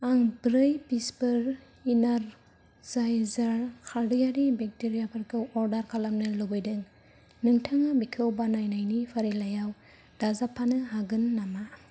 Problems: low volume